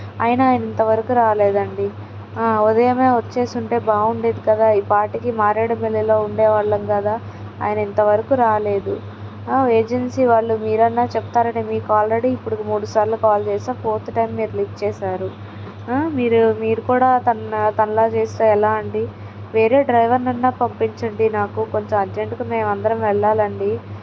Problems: none marked